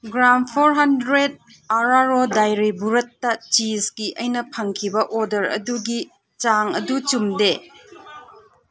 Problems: background sounds at intervals